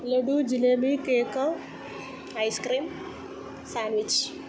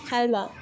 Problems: continuous background conversations, low volume